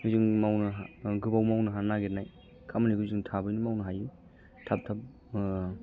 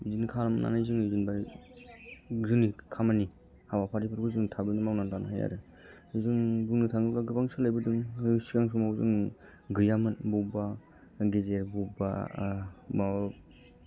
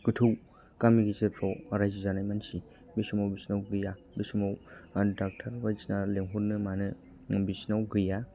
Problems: low volume